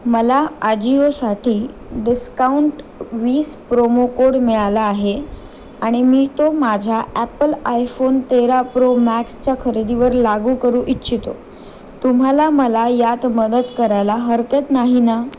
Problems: constant background noise